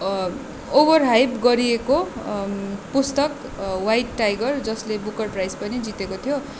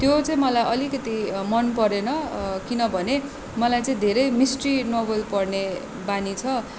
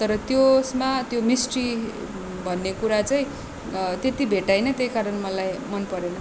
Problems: constant background noise